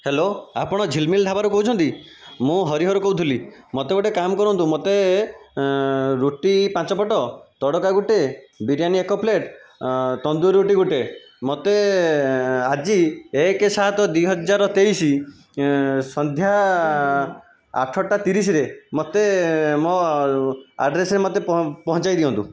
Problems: constant background noise